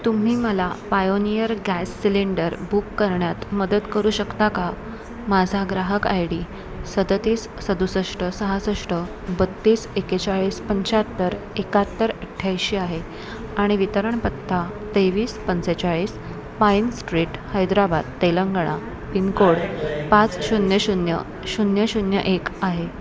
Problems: constant background noise, background conversations at intervals